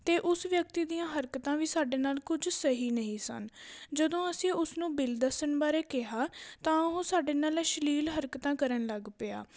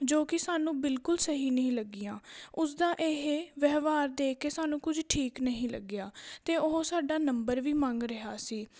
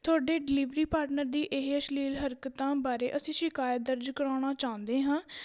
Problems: background sounds at intervals